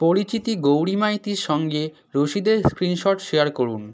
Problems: none marked